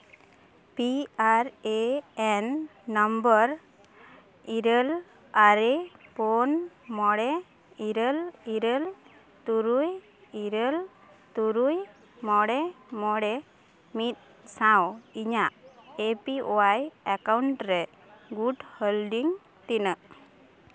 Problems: background sounds at intervals, background conversations at intervals